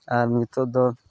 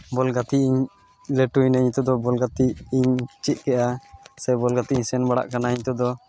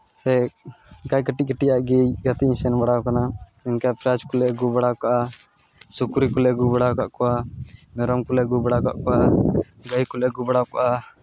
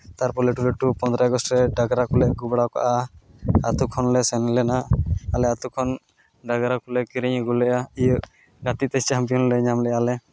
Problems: constant background noise